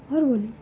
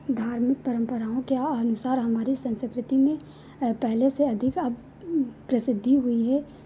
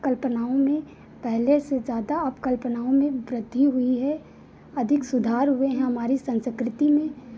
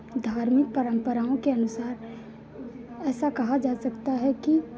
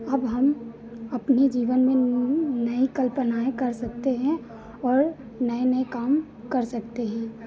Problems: none marked